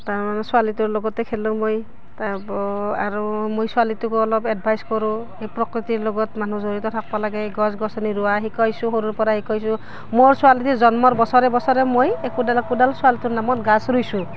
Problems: none marked